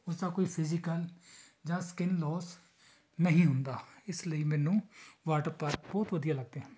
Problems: background conversations at intervals